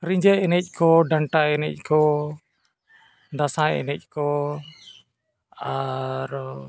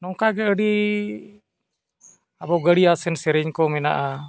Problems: none marked